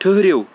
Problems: constant background noise